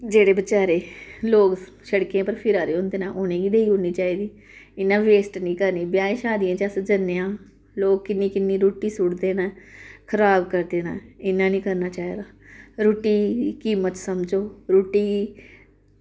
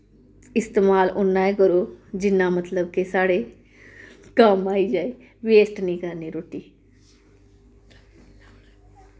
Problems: none marked